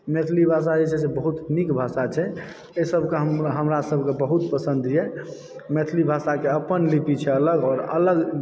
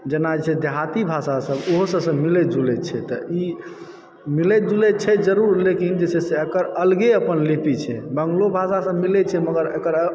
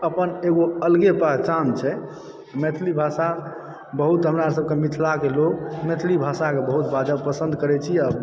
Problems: background sounds at intervals